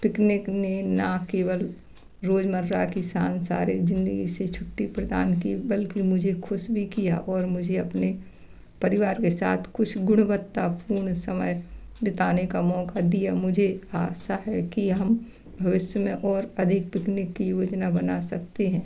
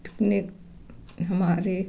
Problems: background sounds at intervals, background conversations at intervals